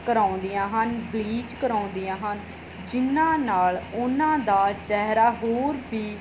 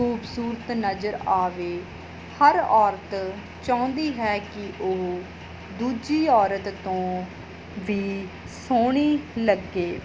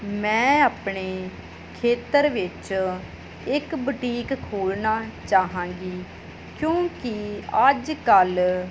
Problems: none marked